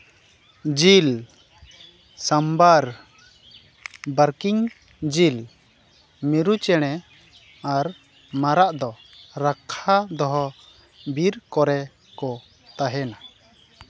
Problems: none marked